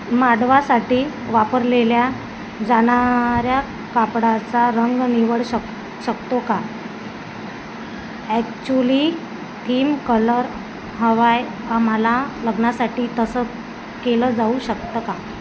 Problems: constant background noise